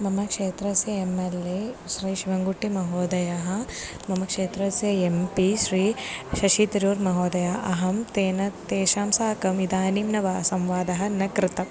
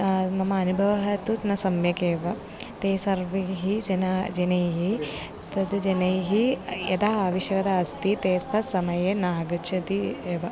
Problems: background sounds at intervals, background conversations at intervals